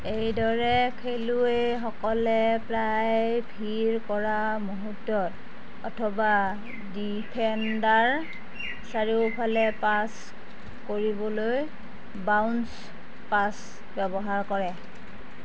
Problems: constant background noise